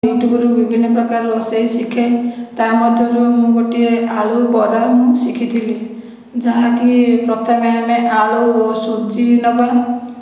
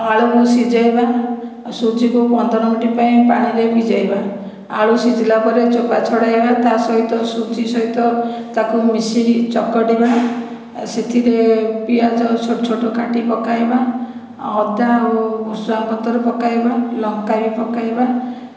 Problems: background sounds at intervals, echo